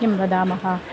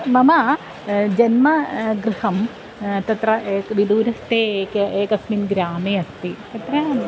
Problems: none marked